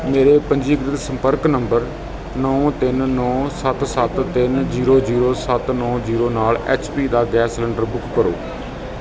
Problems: none marked